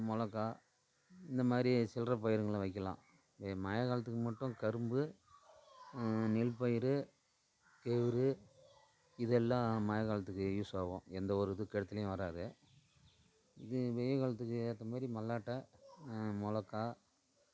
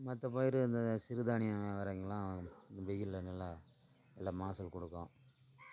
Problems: constant background noise, low volume